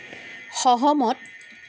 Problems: constant background noise